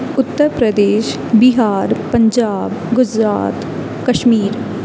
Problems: none marked